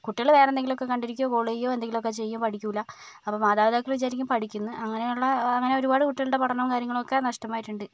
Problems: none marked